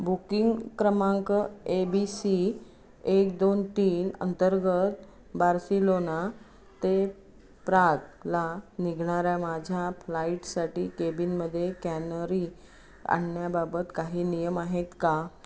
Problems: none marked